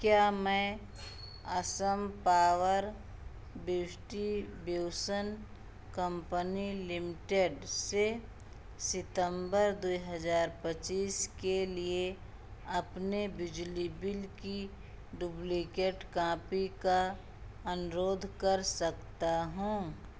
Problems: constant background noise